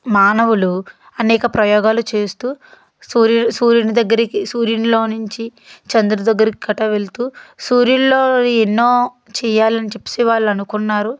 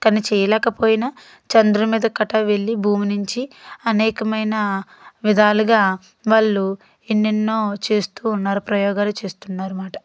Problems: none marked